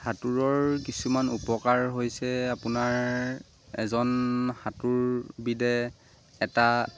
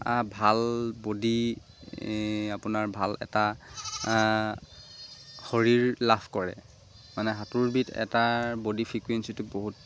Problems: constant background noise